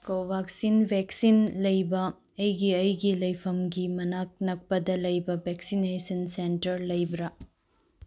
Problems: low volume